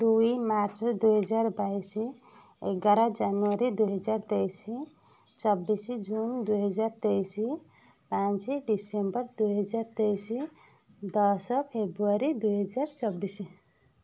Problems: none marked